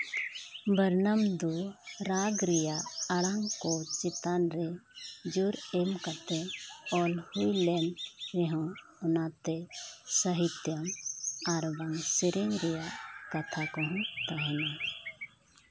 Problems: background sounds at intervals